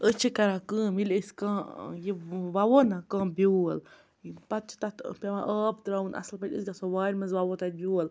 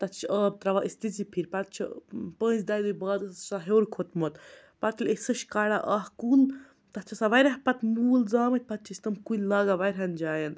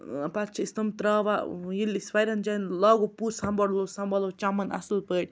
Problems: none marked